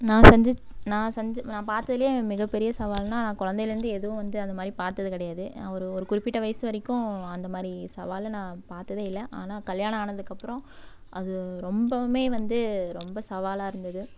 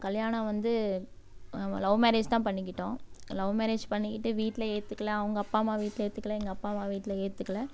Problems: background sounds at intervals